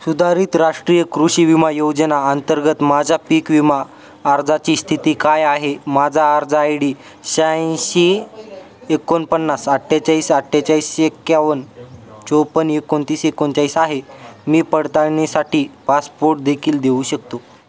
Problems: constant background noise, continuous background conversations